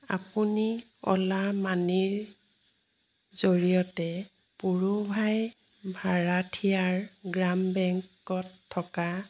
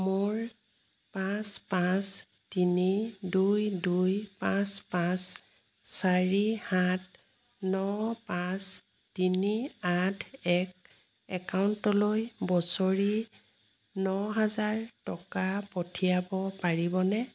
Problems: none marked